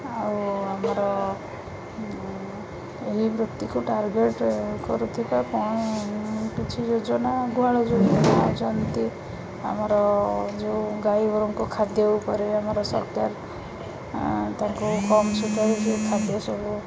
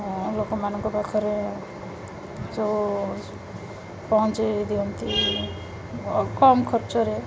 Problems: constant background noise, background conversations at intervals